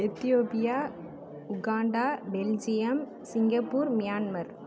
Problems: constant background noise